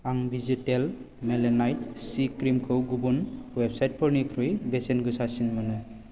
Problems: none marked